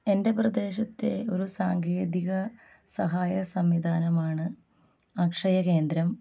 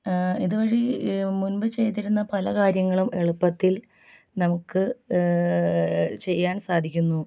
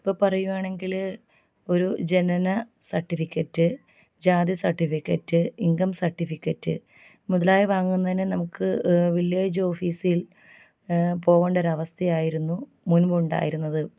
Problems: low volume